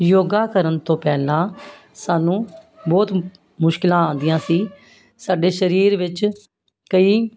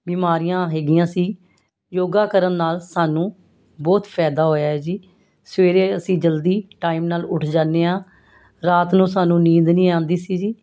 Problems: constant background noise